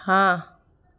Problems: background sounds at intervals